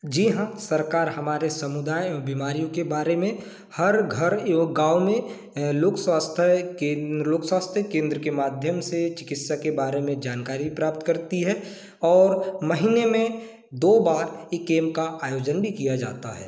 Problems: constant background noise